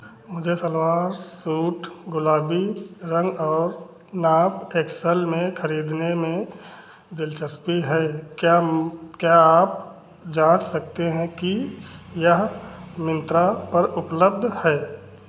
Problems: none marked